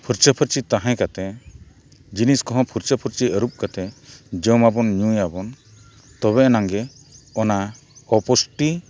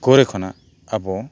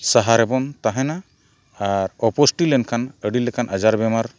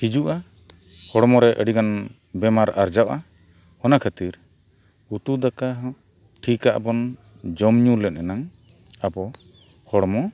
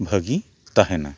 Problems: background sounds at intervals